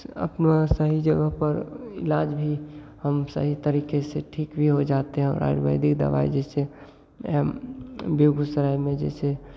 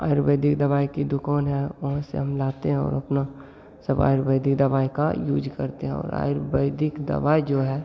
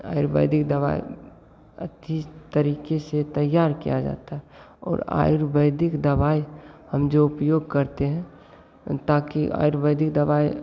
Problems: none marked